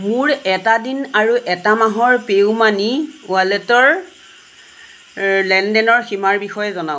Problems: constant background noise